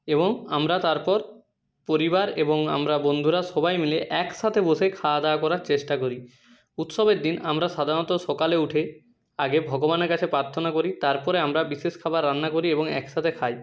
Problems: none marked